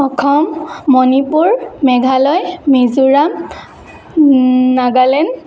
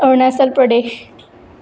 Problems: none marked